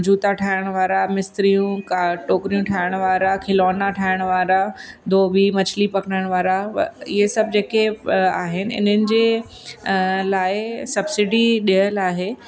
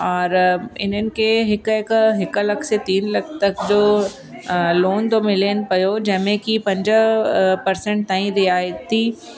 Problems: constant background noise, echo